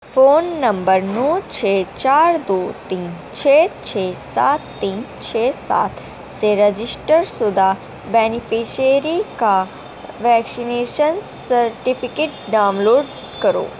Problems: constant background noise